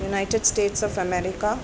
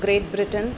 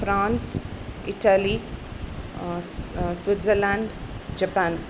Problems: constant background noise